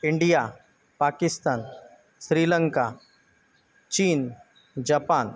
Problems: constant background noise, background conversations at intervals